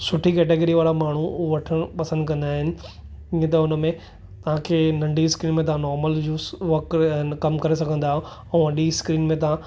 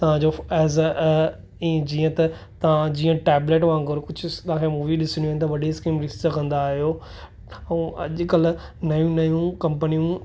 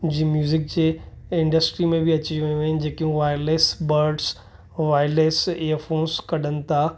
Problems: none marked